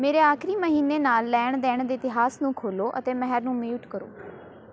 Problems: background conversations at intervals